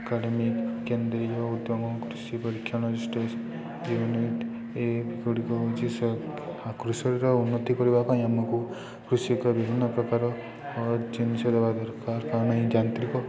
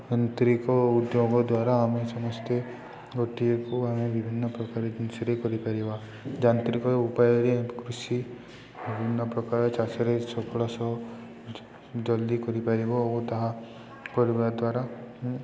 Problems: constant background noise, continuous background conversations